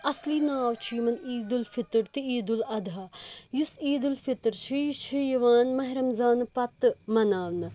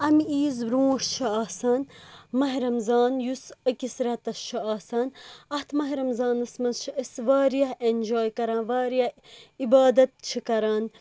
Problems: constant background noise